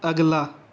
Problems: none marked